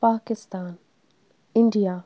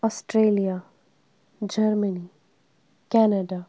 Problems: none marked